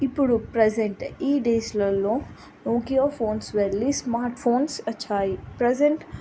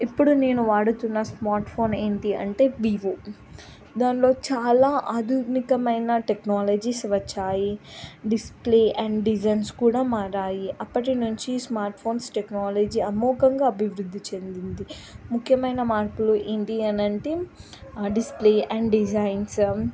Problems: none marked